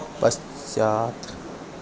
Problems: constant background noise